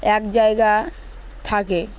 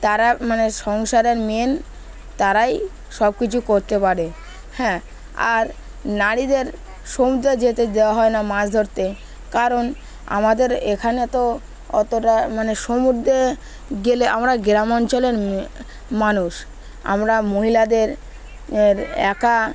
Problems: constant background noise, continuous background conversations